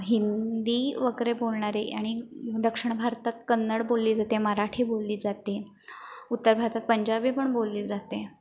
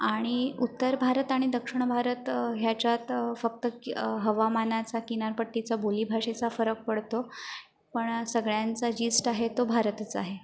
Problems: none marked